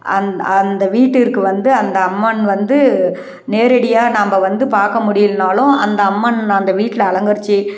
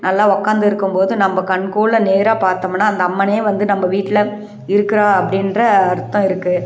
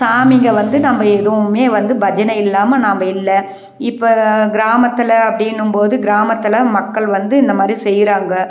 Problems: none marked